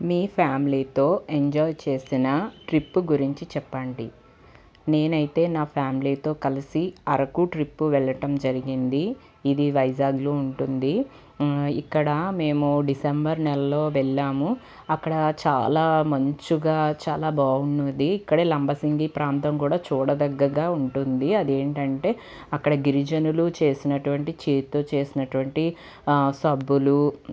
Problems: none marked